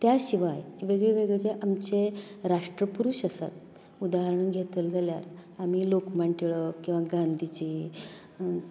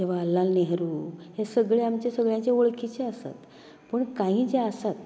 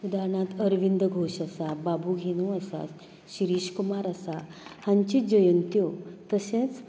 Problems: none marked